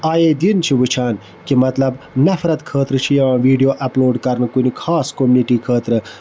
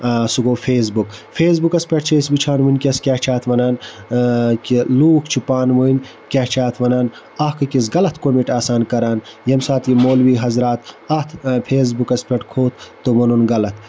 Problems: constant background noise